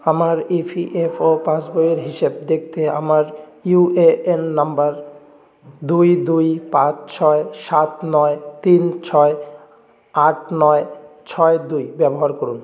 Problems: none marked